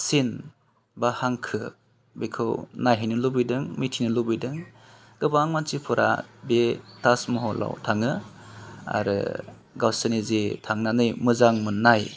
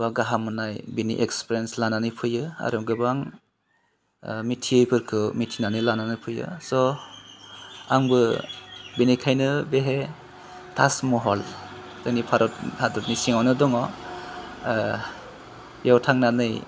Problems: none marked